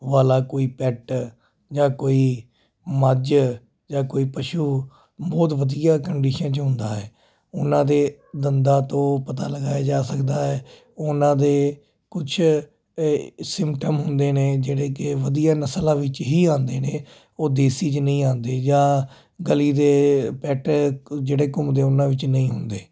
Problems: constant background noise